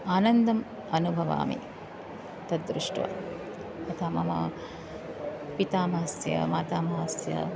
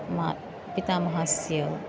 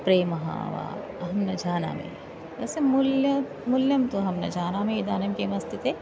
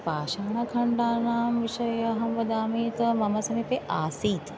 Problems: none marked